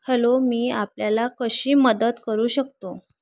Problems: none marked